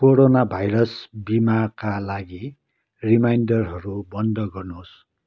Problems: none marked